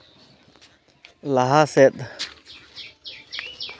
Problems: constant background noise